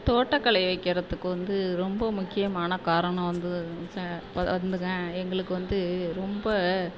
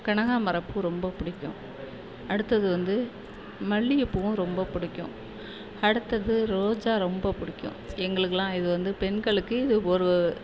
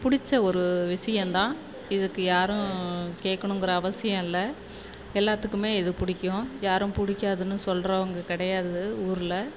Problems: constant background noise